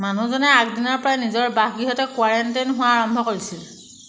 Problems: background sounds at intervals